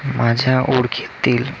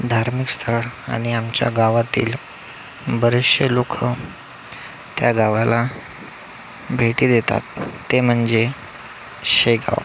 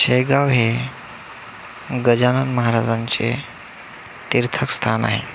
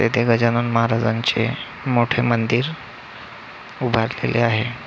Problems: none marked